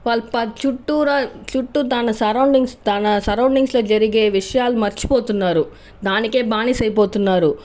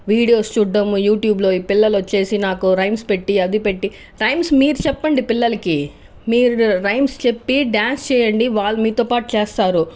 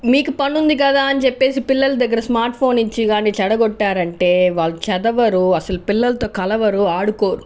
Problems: background sounds at intervals